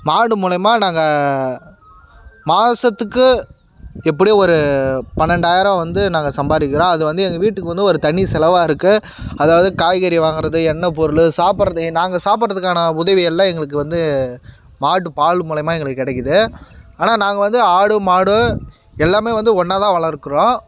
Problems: background sounds at intervals